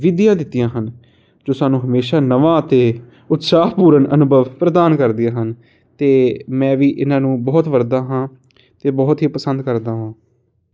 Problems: none marked